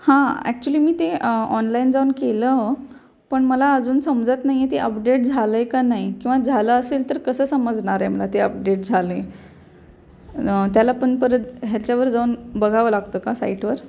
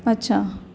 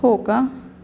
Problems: none marked